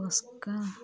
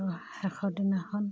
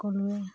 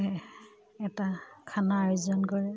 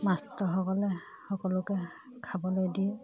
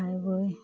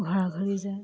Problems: background sounds at intervals, background conversations at intervals